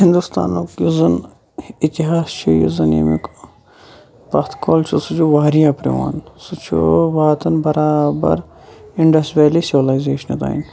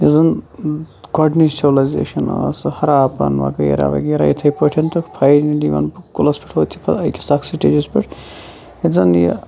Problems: background sounds at intervals, background conversations at intervals